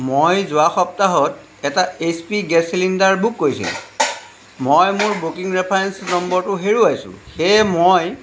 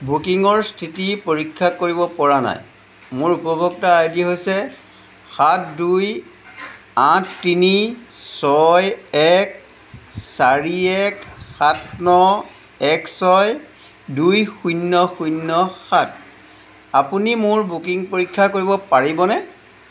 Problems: background sounds at intervals